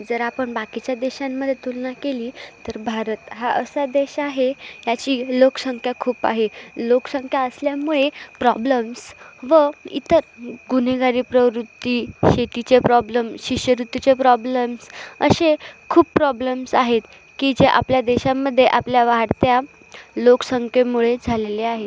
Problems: none marked